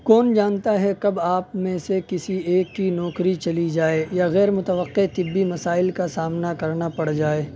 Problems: none marked